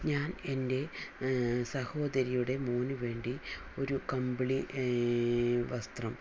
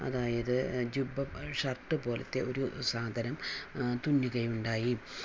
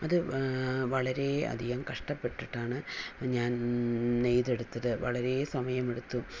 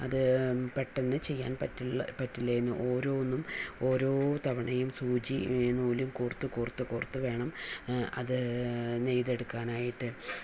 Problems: none marked